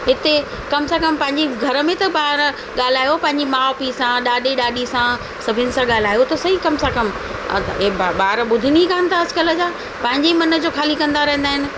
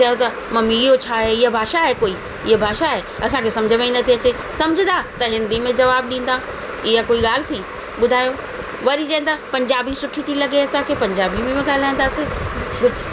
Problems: constant background noise, echo